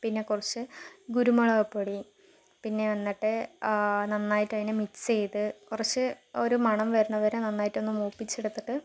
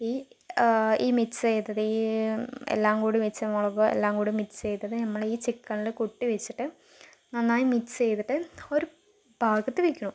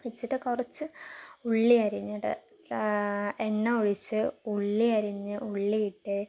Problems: low volume